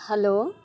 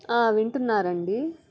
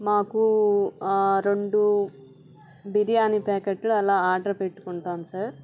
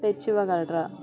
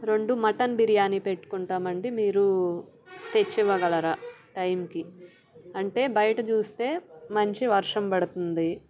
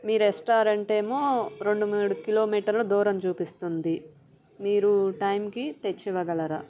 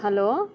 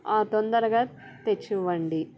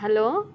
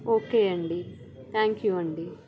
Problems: background sounds at intervals